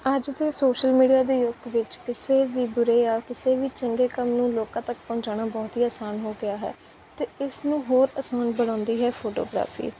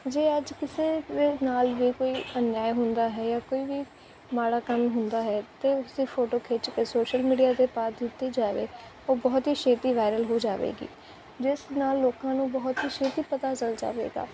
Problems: constant background noise